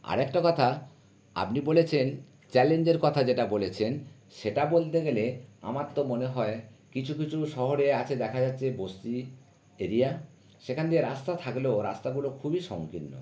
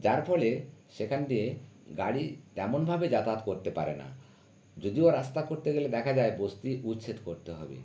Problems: none marked